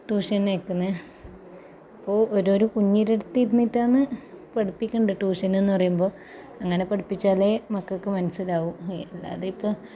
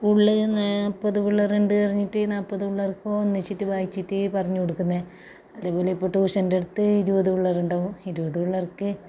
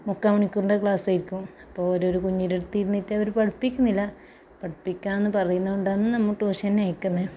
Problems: background conversations at intervals